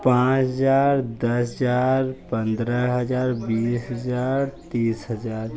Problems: constant background noise